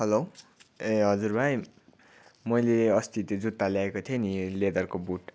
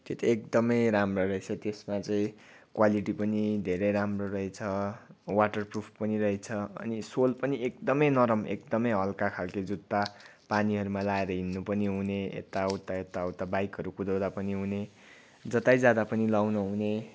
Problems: none marked